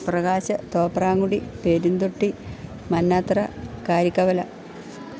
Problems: constant background noise